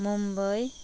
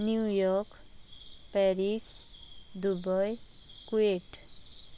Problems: none marked